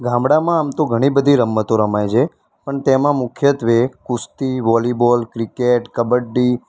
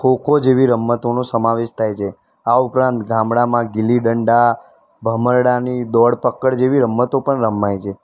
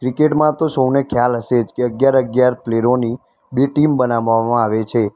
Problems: constant background noise